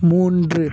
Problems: background sounds at intervals